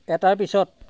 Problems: none marked